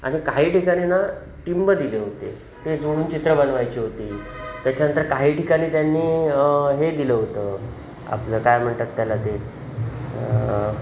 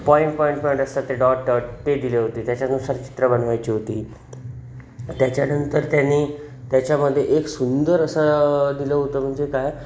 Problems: none marked